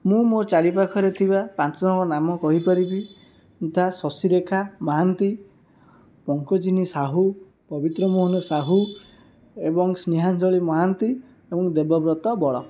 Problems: background sounds at intervals